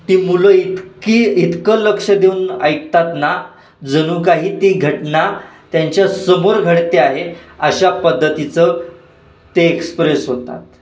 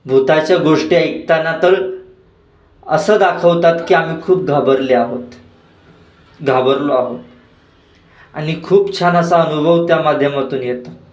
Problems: constant background noise, echo